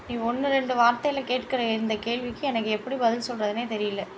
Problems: constant background noise